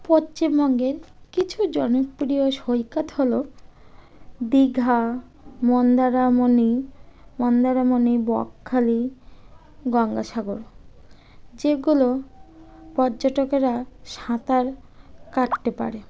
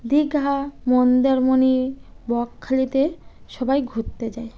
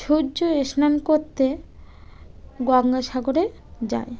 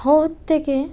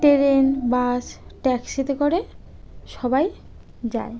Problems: background sounds at intervals